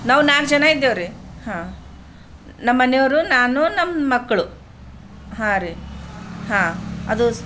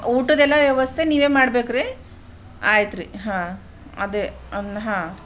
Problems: background sounds at intervals